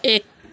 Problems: constant background noise